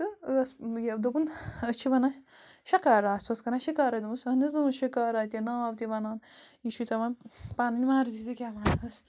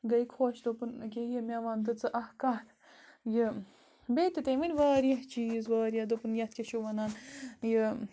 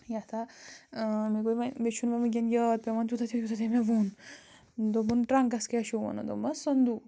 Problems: constant background noise